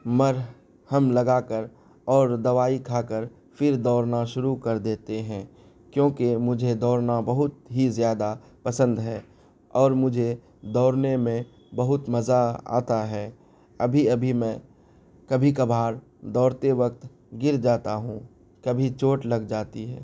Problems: none marked